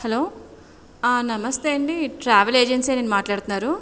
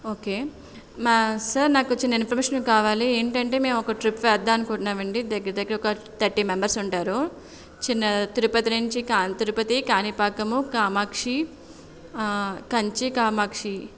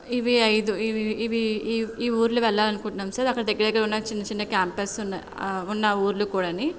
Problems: background conversations at intervals